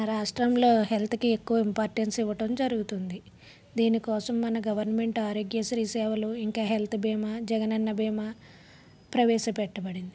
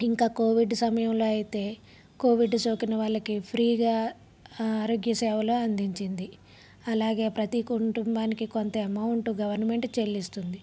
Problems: none marked